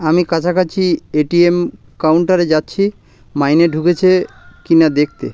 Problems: constant background noise